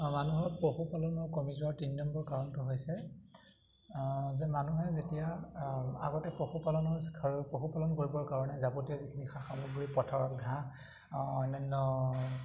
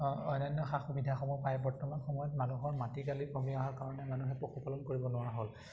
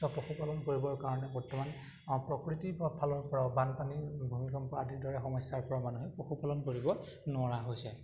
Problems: constant background noise